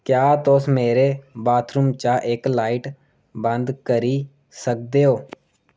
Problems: none marked